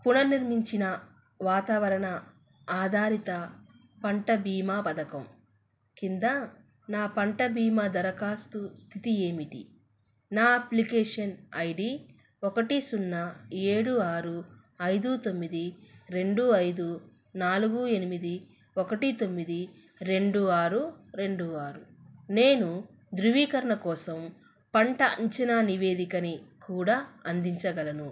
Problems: none marked